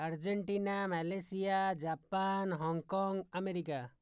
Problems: low volume